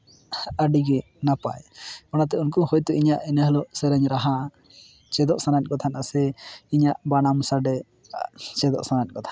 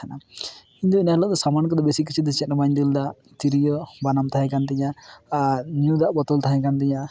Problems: constant background noise, background conversations at intervals